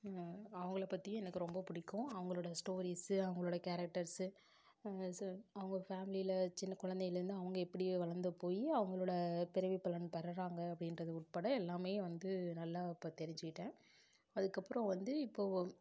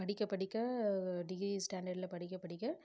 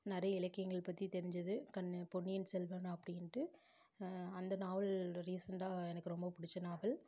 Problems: none marked